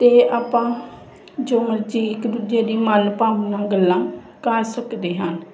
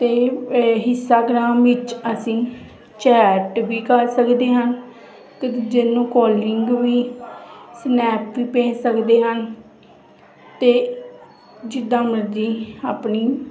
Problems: constant background noise, continuous background conversations